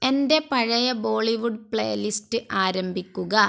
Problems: none marked